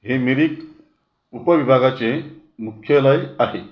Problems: background sounds at intervals